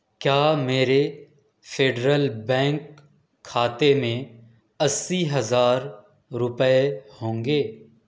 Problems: none marked